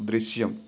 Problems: constant background noise